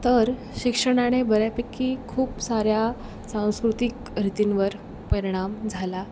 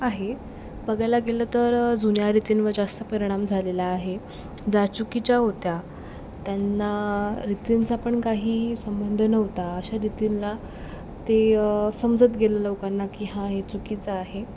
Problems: background sounds at intervals